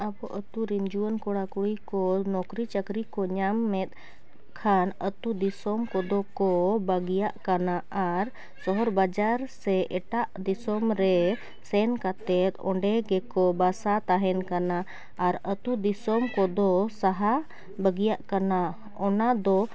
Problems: none marked